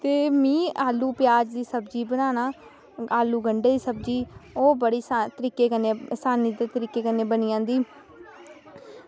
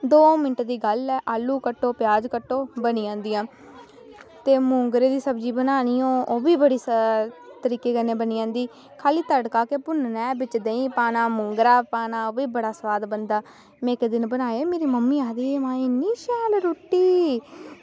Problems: none marked